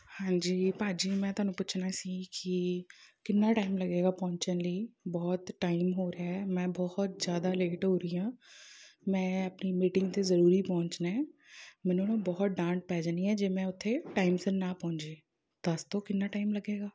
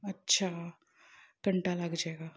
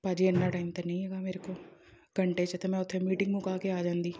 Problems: background sounds at intervals